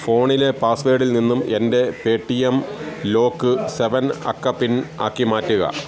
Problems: none marked